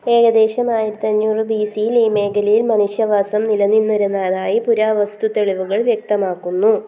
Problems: low volume